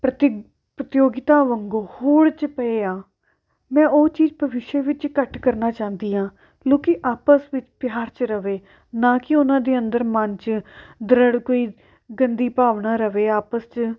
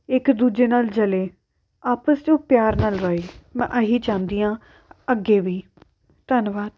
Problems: background sounds at intervals